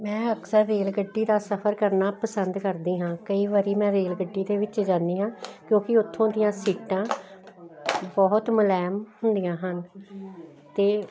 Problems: none marked